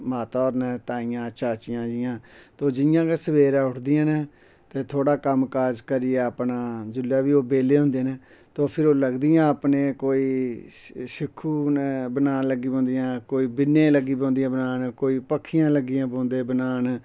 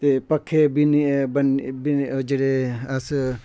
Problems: none marked